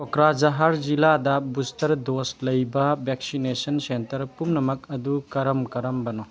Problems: none marked